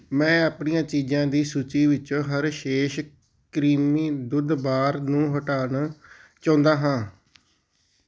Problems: background sounds at intervals